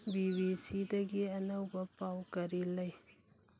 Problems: low volume